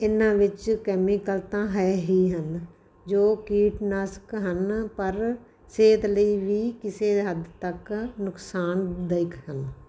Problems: constant background noise